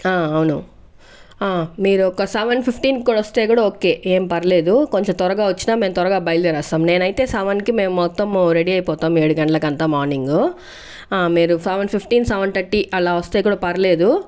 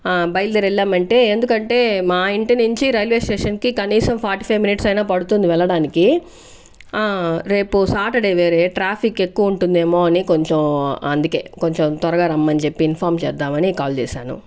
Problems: background sounds at intervals